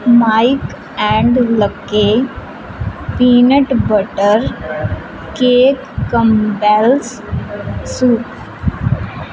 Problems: constant background noise